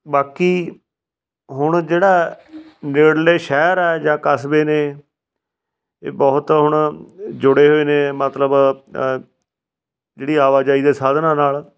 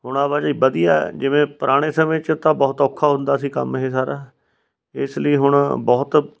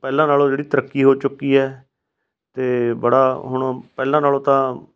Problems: background sounds at intervals